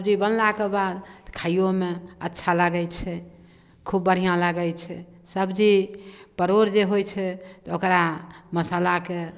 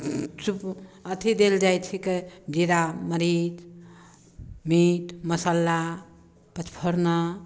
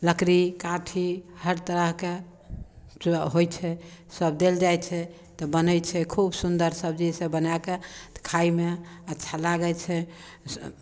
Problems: none marked